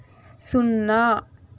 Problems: constant background noise